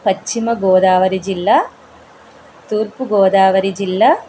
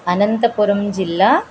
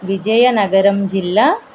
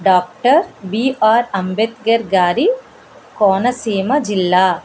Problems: constant background noise